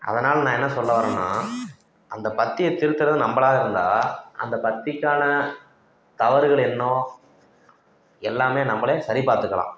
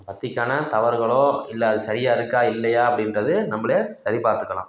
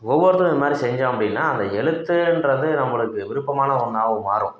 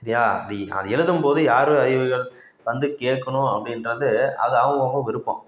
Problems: none marked